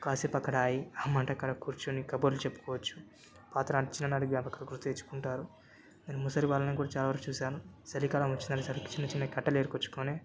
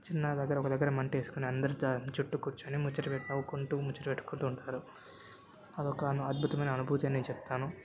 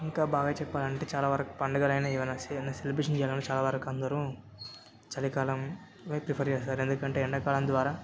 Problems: background sounds at intervals, background conversations at intervals